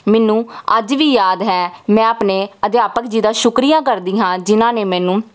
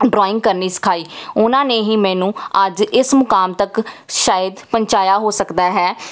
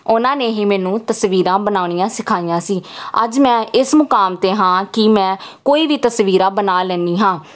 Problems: none marked